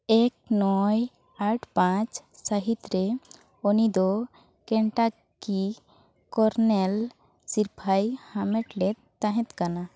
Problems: constant background noise